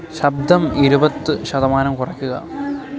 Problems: constant background noise